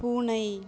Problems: none marked